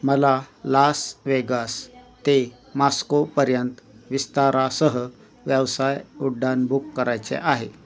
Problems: constant background noise, continuous background conversations